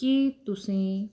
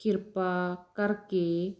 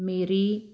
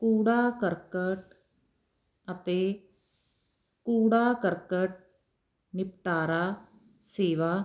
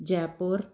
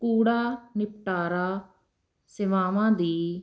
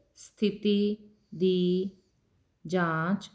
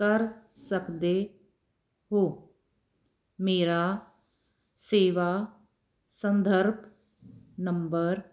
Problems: none marked